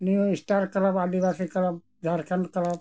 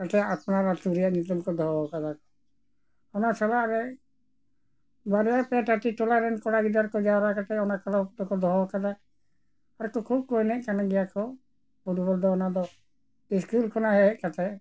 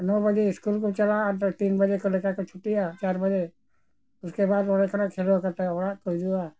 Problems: background sounds at intervals